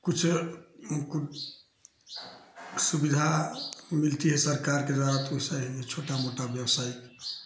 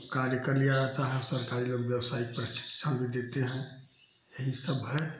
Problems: none marked